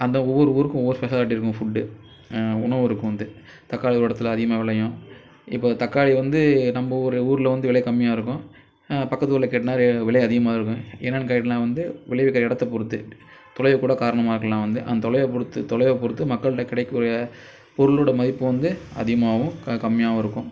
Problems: background sounds at intervals